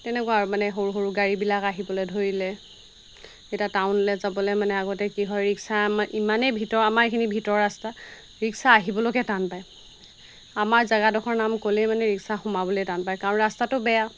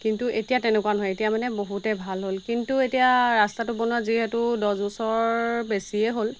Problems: constant background noise